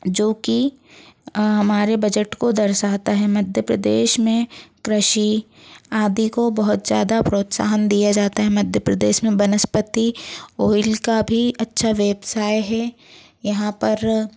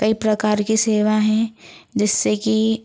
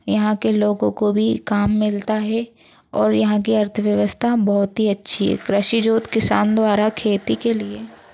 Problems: constant background noise